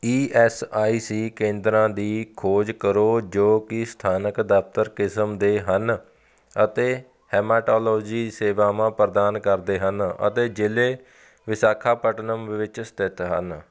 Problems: background sounds at intervals